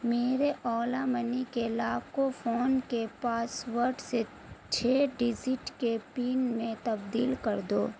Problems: constant background noise